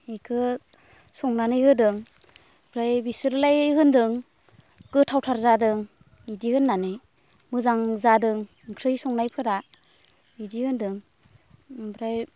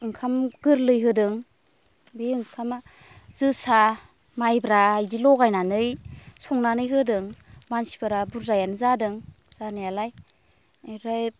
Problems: constant background noise